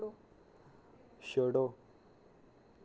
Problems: constant background noise